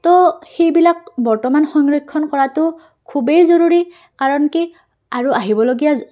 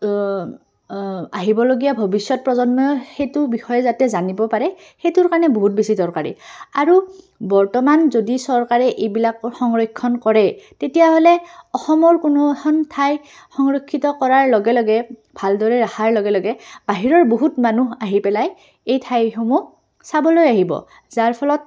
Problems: background conversations at intervals